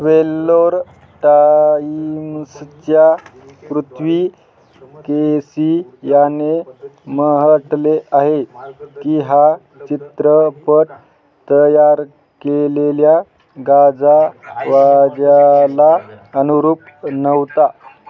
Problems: constant background noise, continuous background conversations